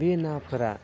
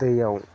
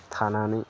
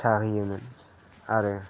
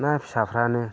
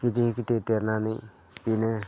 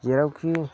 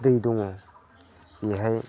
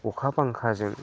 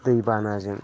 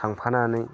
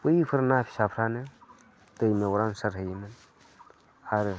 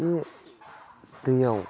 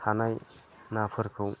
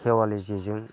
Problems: constant background noise